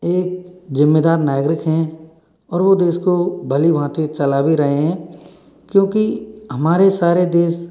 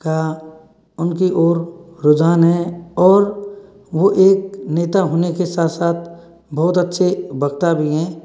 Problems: none marked